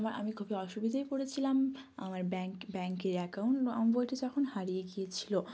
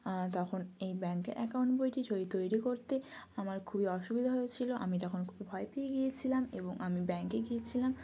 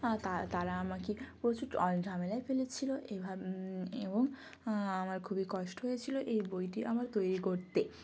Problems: background sounds at intervals